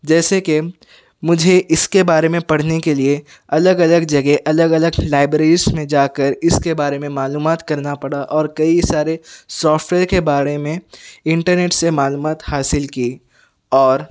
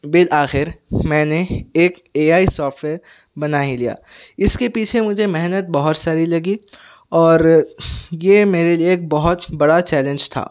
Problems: background sounds at intervals